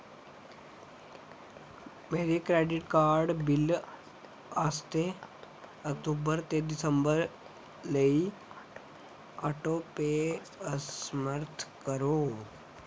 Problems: constant background noise